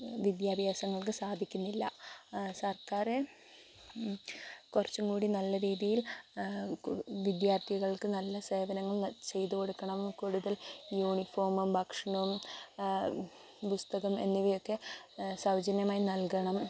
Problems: constant background noise